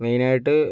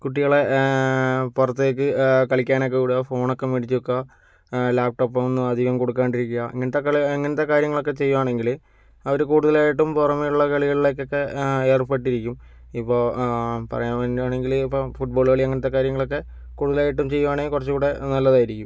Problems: none marked